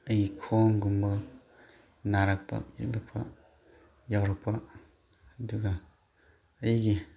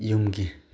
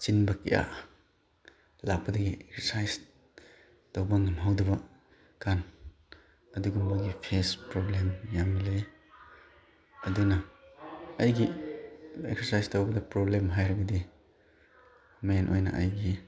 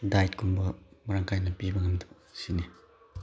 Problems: background sounds at intervals